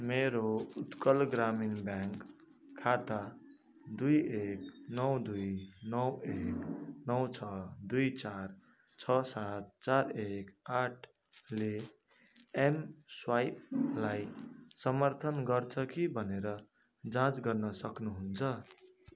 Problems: constant background noise